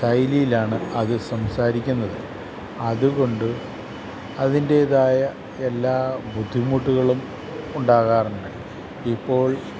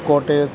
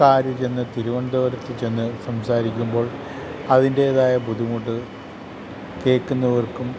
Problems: constant background noise